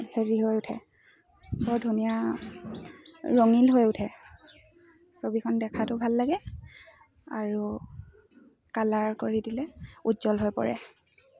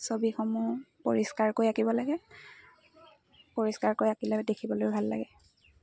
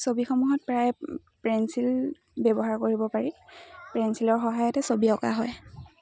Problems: constant background noise, continuous background conversations